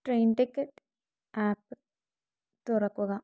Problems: none marked